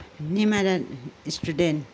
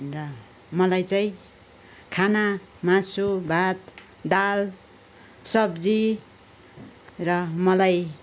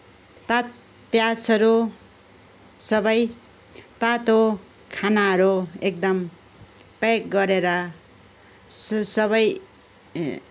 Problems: background sounds at intervals, continuous background conversations